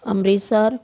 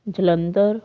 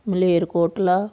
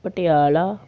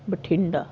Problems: background sounds at intervals